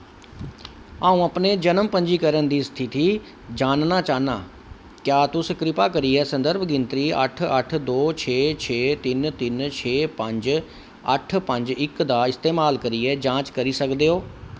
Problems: none marked